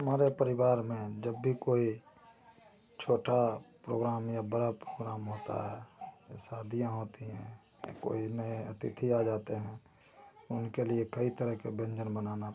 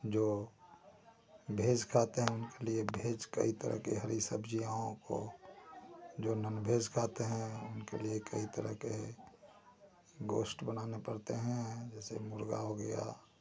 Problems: constant background noise